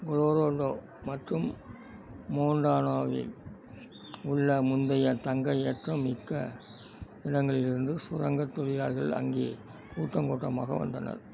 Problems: none marked